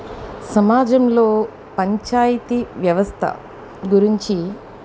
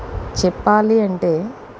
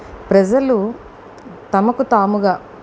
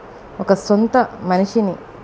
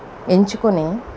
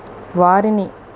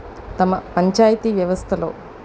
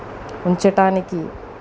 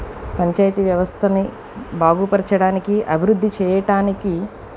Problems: constant background noise, background conversations at intervals